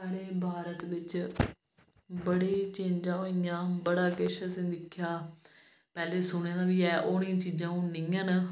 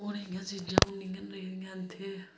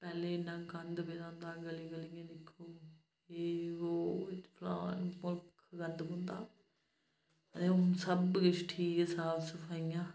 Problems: background conversations at intervals